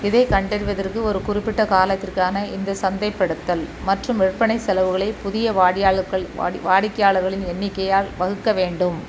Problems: constant background noise